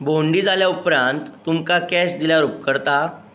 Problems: constant background noise